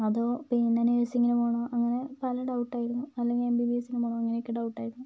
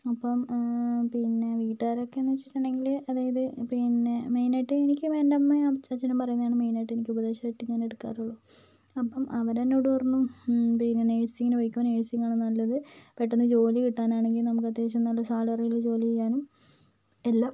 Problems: low volume